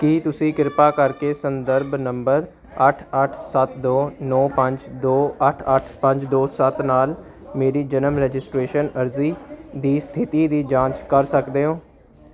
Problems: background sounds at intervals